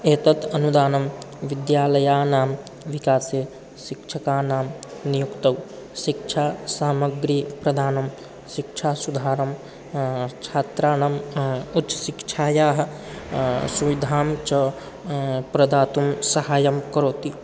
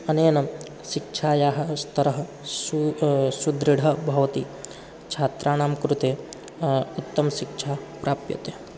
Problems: none marked